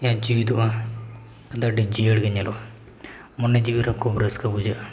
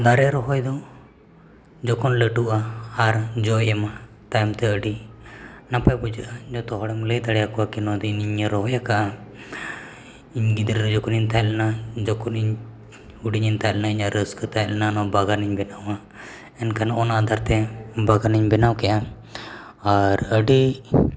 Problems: echo